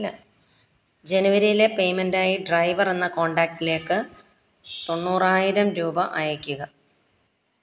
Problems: background sounds at intervals, background conversations at intervals